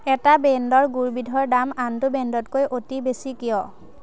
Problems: none marked